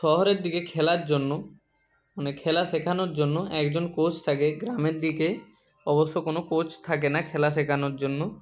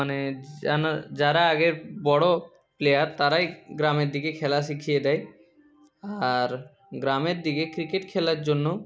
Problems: background sounds at intervals